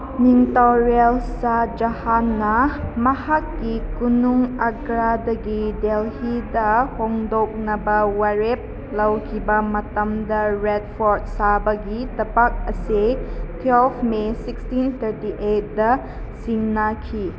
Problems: constant background noise